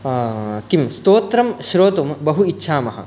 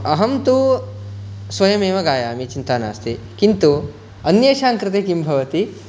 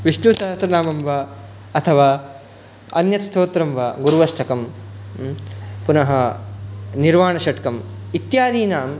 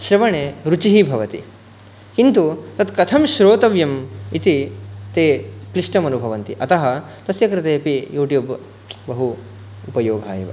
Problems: none marked